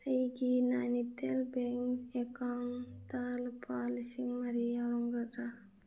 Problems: low volume